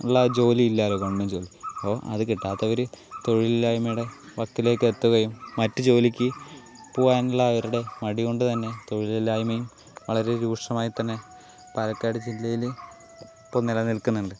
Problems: constant background noise